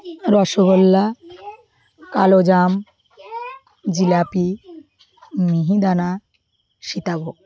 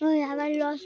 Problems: none marked